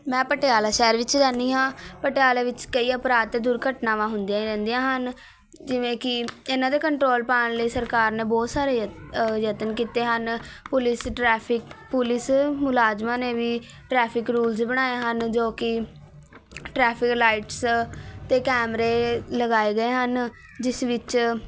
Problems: constant background noise, continuous background conversations